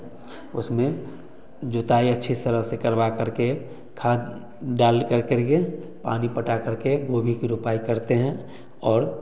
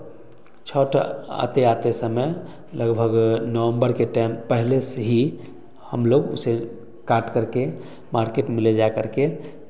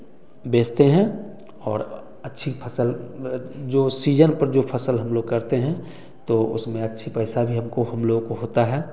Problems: background conversations at intervals, echo